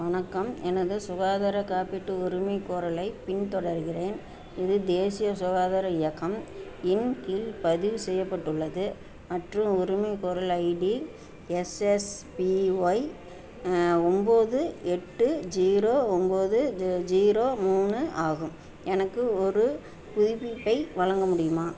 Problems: constant background noise